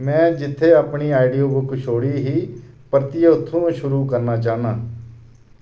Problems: none marked